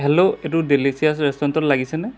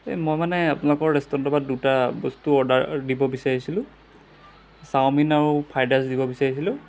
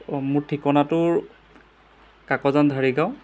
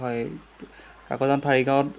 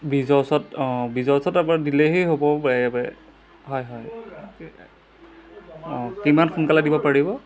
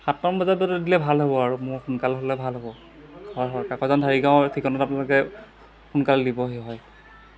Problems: background sounds at intervals